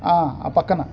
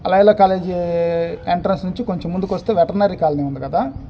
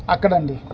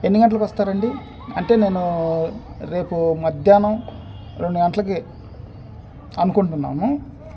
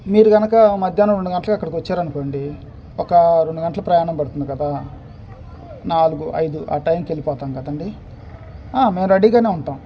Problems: none marked